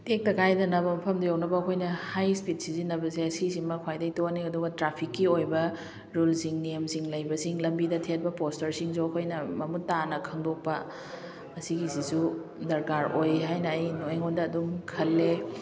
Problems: background conversations at intervals